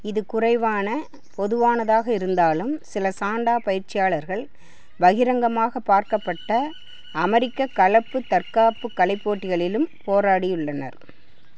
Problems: background sounds at intervals